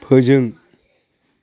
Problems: none marked